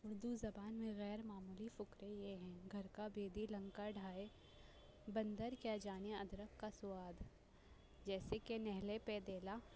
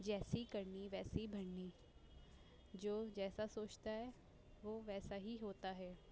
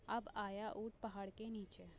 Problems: constant background noise